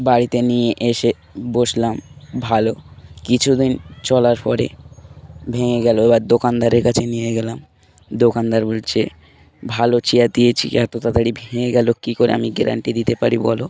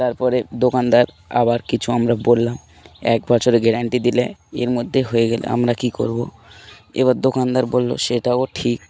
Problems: background sounds at intervals